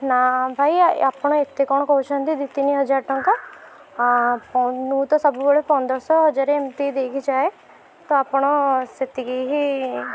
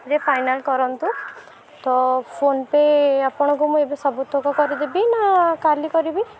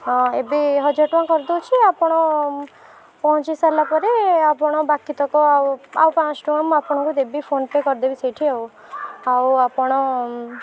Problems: none marked